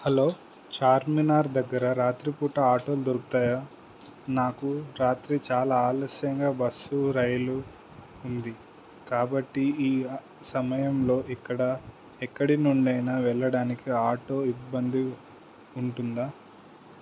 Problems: constant background noise